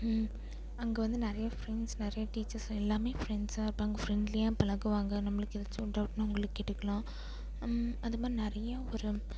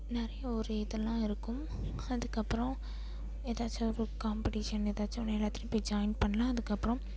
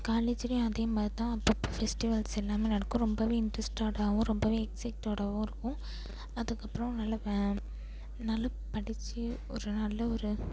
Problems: background sounds at intervals